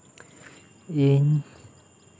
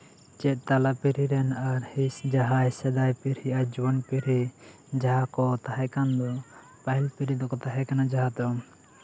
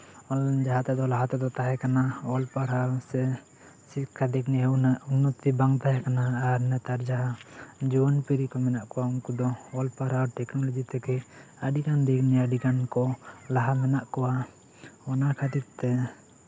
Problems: background sounds at intervals, continuous background conversations